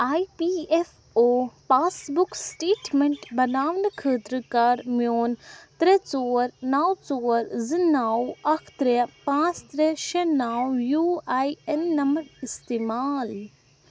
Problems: constant background noise